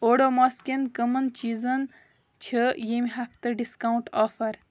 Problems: none marked